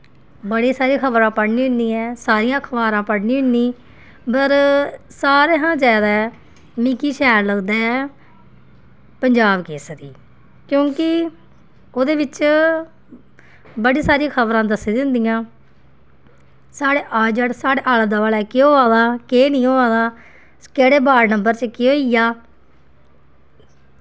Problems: constant background noise